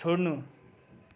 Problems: none marked